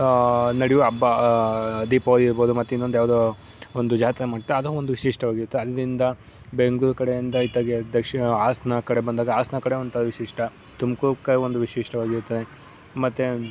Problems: background sounds at intervals